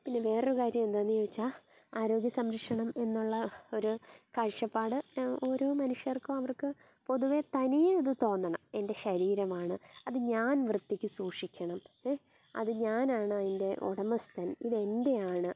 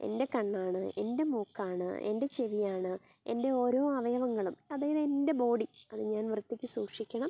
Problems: none marked